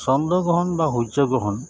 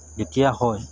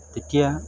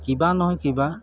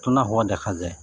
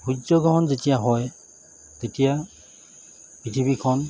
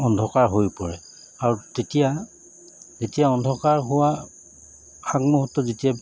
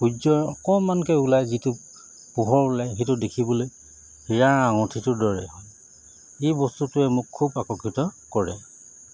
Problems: none marked